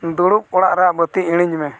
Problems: none marked